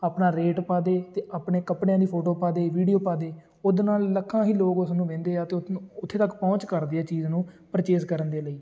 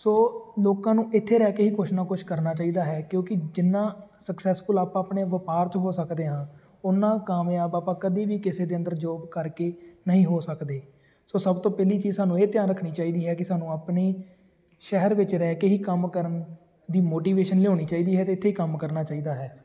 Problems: constant background noise, continuous background conversations